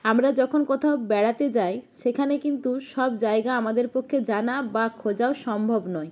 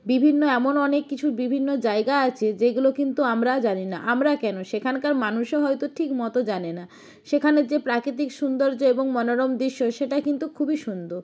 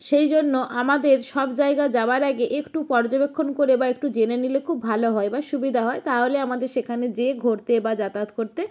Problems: background sounds at intervals